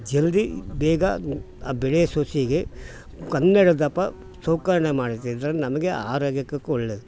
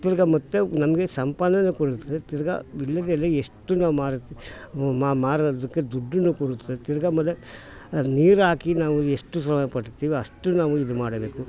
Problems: background sounds at intervals